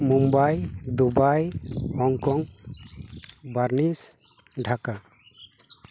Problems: background sounds at intervals